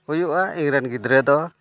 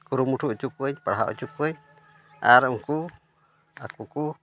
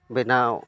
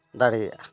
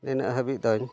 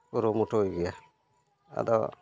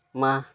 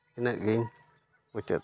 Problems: none marked